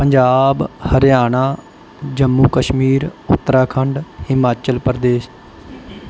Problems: background sounds at intervals